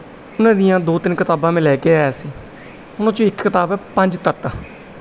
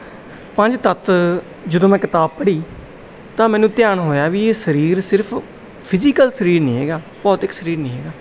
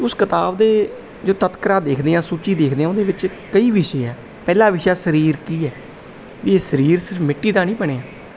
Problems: background sounds at intervals